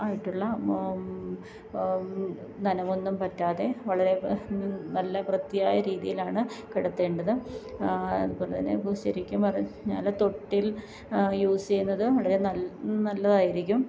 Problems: background sounds at intervals